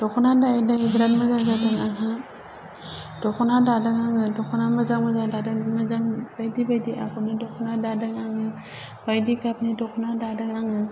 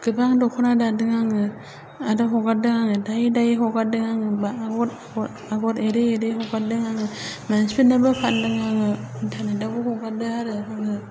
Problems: low volume